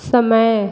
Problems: constant background noise, echo